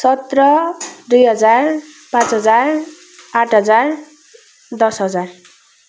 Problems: constant background noise